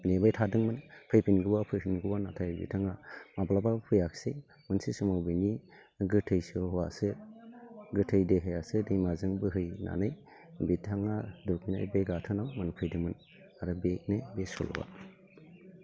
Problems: constant background noise